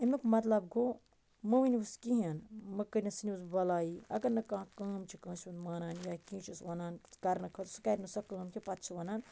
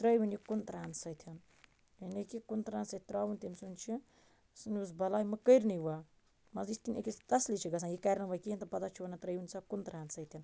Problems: none marked